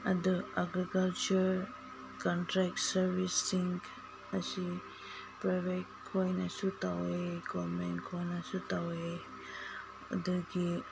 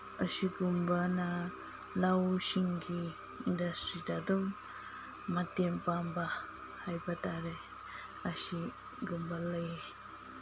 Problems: low volume